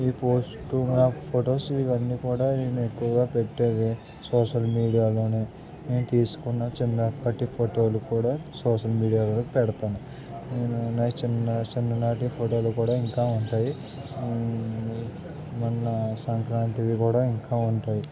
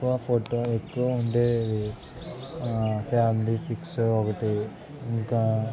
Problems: none marked